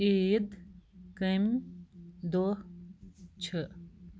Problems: none marked